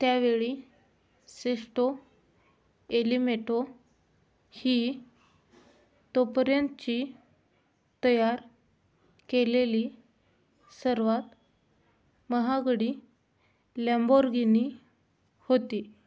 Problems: none marked